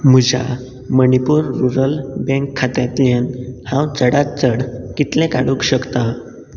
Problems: background sounds at intervals